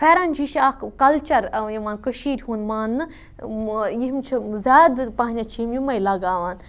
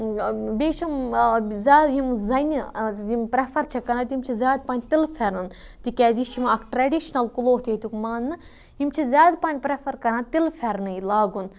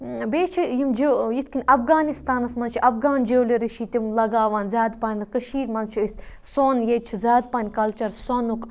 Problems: background sounds at intervals